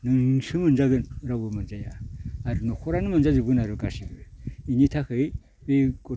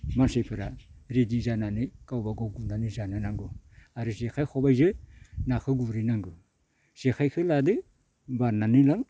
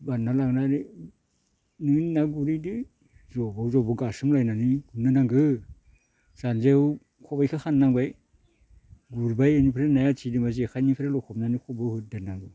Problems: none marked